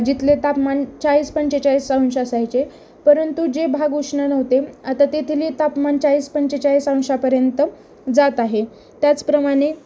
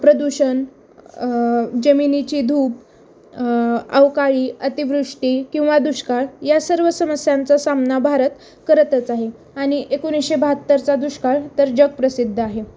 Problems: constant background noise, background conversations at intervals